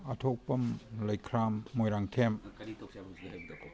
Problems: background conversations at intervals